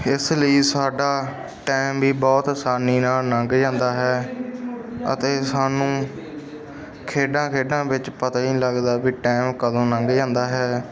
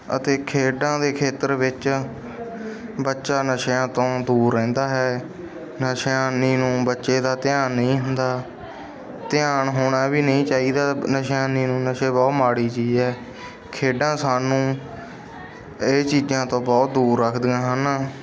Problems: background sounds at intervals, background conversations at intervals